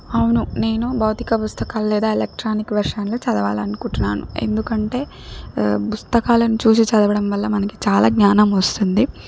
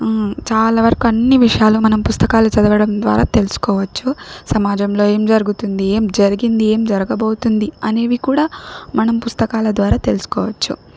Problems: background sounds at intervals